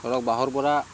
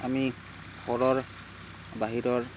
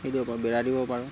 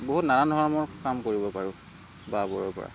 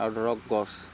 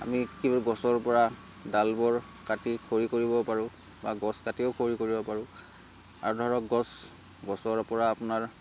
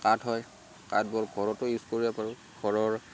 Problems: constant background noise